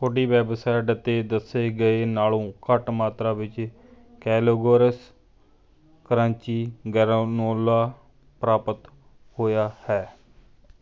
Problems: none marked